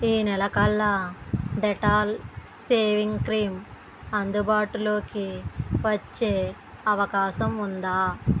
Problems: background sounds at intervals